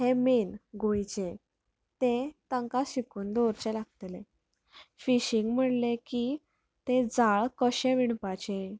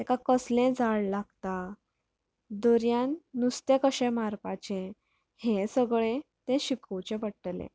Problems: background sounds at intervals